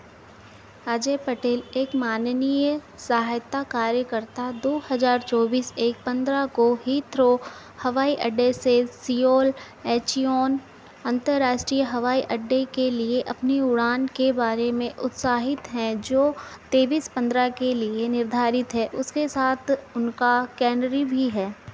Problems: constant background noise